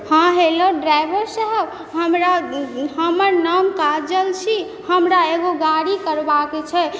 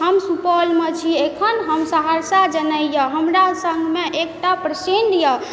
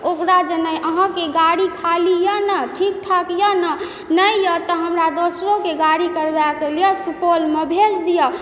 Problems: background sounds at intervals